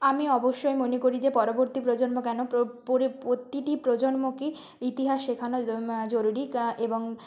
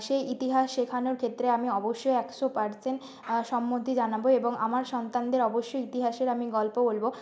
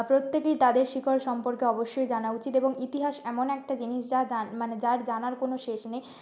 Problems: background sounds at intervals